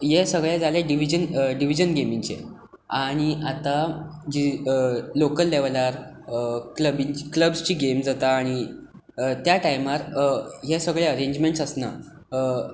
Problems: none marked